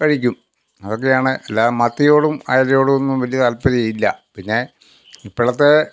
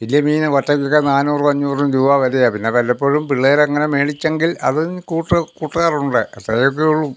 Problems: none marked